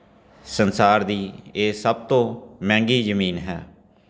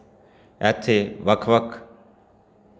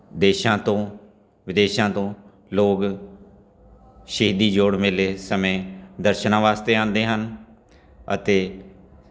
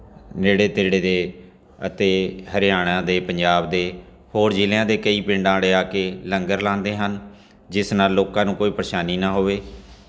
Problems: background sounds at intervals, background conversations at intervals